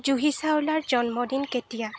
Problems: constant background noise